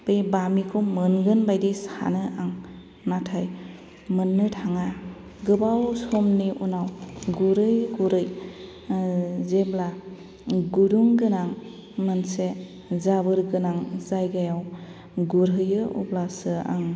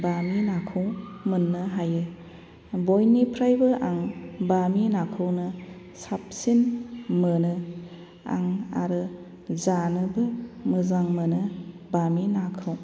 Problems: constant background noise